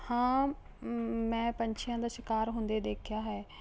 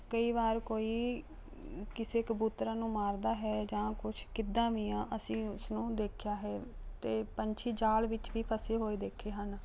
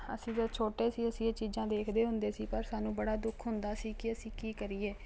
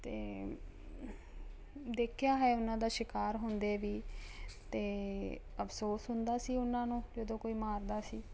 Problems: none marked